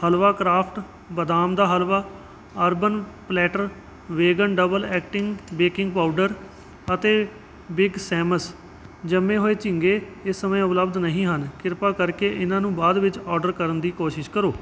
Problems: background sounds at intervals